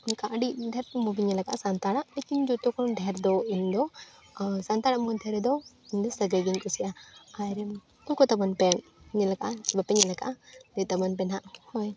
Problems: background conversations at intervals